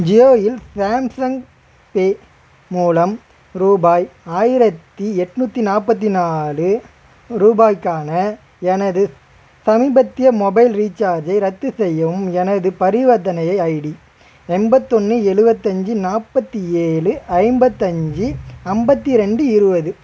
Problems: constant background noise